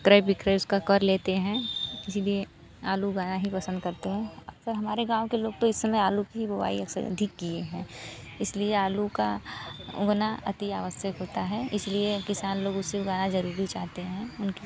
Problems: constant background noise